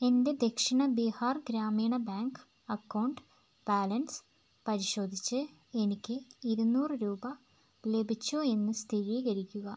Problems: constant background noise